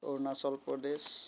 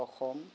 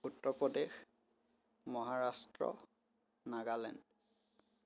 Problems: none marked